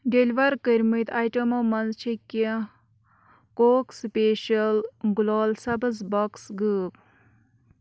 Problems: background sounds at intervals